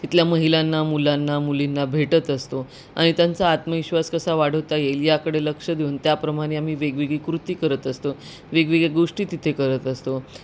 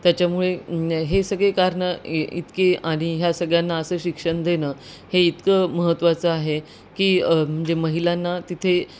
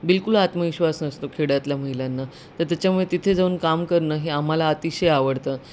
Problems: constant background noise